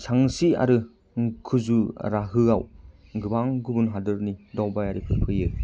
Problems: low volume